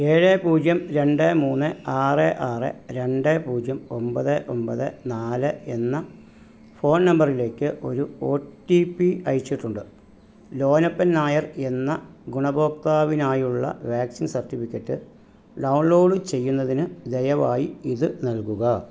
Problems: none marked